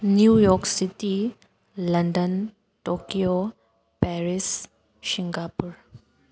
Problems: none marked